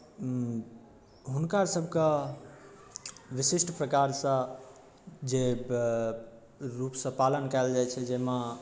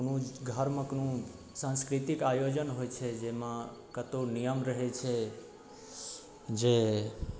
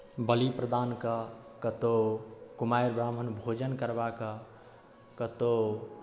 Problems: none marked